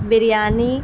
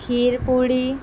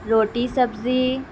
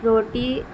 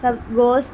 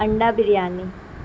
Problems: constant background noise